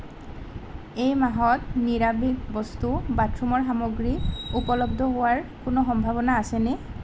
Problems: none marked